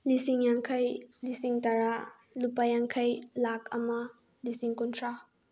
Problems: none marked